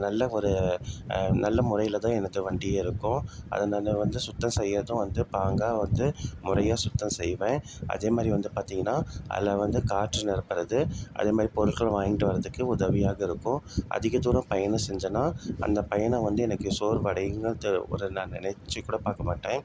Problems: constant background noise